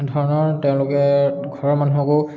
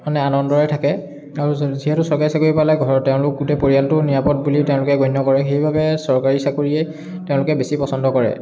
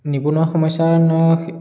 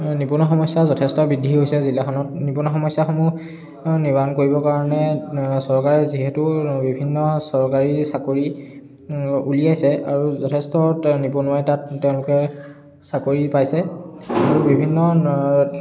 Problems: background sounds at intervals, background conversations at intervals